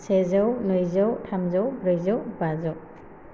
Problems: constant background noise